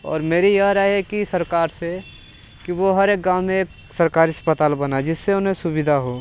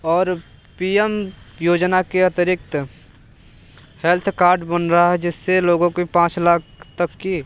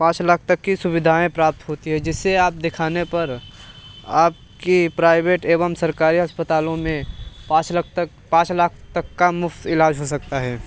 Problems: background sounds at intervals